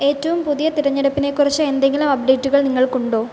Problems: constant background noise